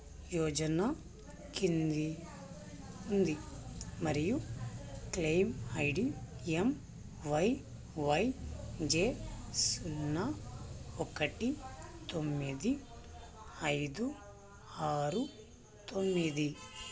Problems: constant background noise, low volume